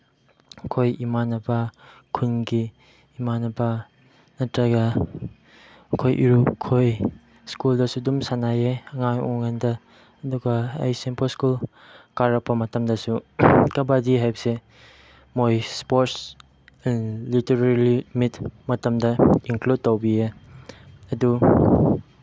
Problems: none marked